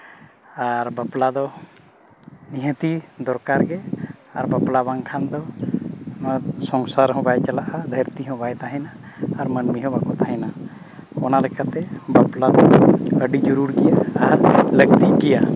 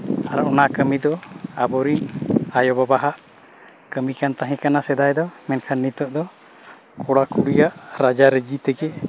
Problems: background sounds at intervals